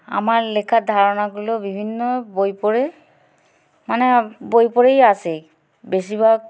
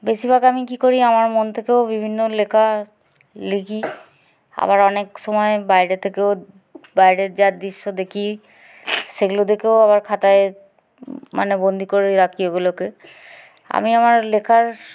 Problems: background sounds at intervals